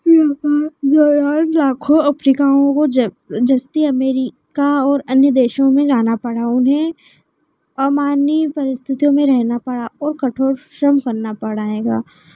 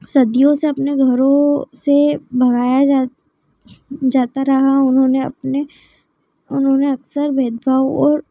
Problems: none marked